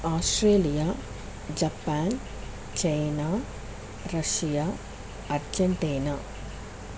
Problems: constant background noise